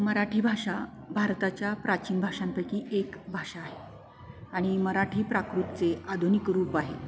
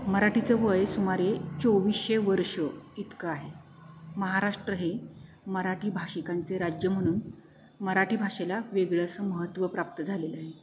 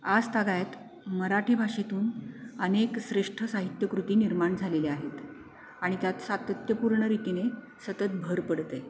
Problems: constant background noise